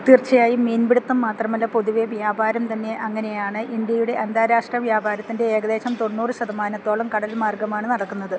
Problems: none marked